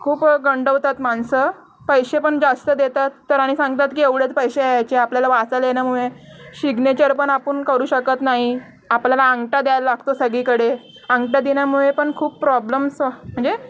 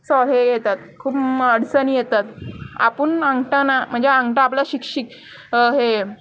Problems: background sounds at intervals